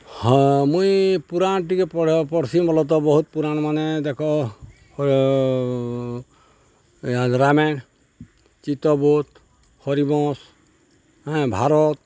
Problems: none marked